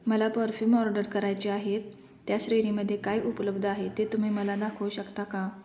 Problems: constant background noise, background conversations at intervals, echo